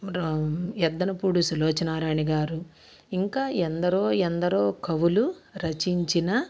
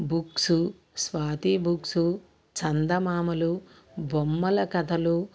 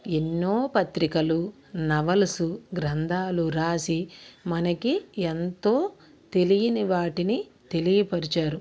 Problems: none marked